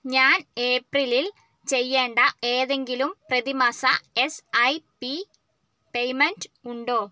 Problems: none marked